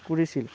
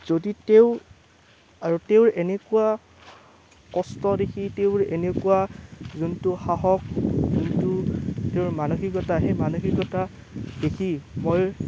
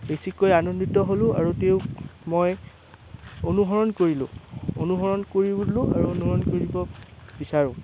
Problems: constant background noise